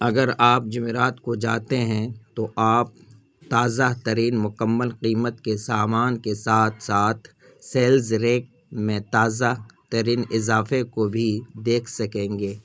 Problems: none marked